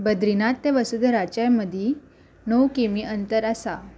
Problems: background sounds at intervals